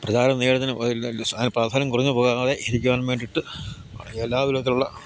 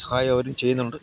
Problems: none marked